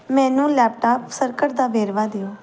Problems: background sounds at intervals